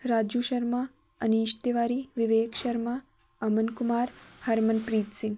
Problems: background sounds at intervals